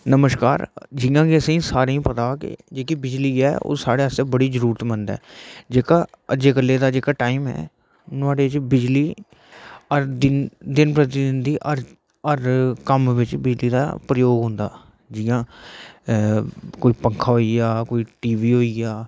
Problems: none marked